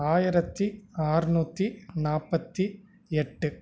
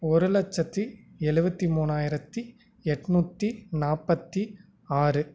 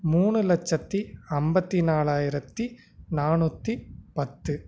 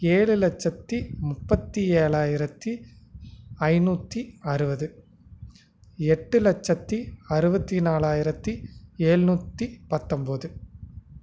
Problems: none marked